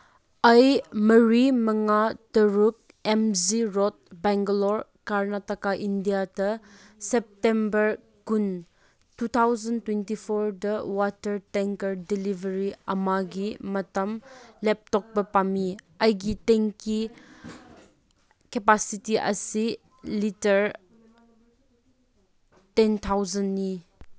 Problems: none marked